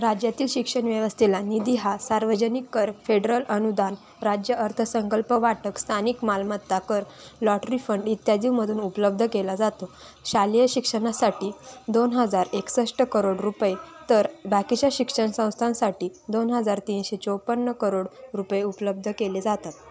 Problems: none marked